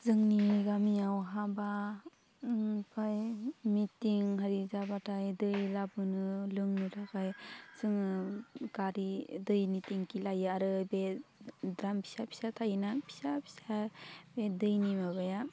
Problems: none marked